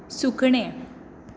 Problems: none marked